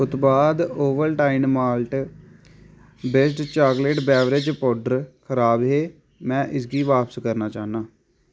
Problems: constant background noise